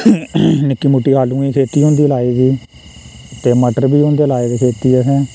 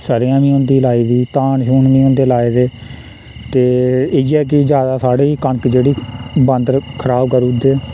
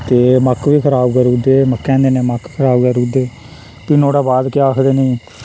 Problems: constant background noise, echo